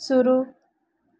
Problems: low volume